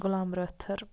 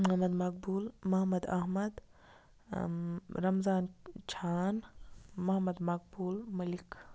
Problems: constant background noise